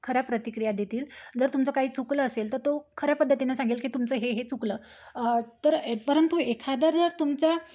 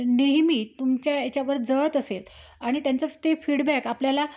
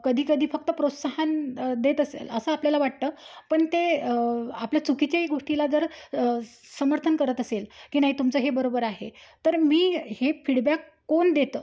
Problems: none marked